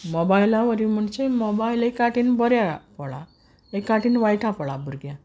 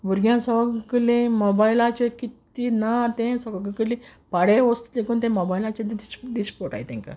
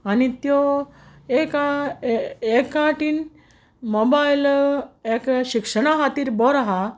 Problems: background sounds at intervals